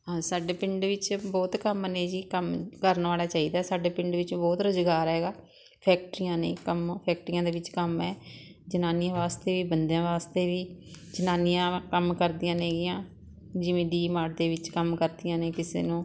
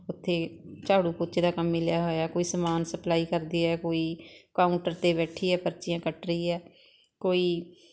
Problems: constant background noise